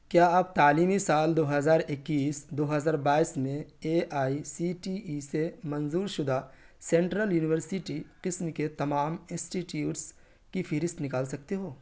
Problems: constant background noise